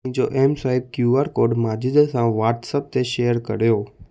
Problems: none marked